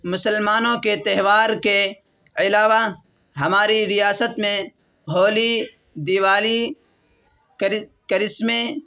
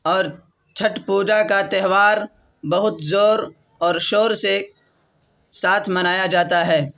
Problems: constant background noise